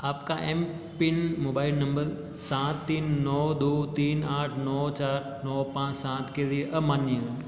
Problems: none marked